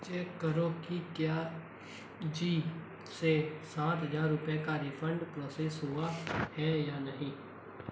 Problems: constant background noise, low volume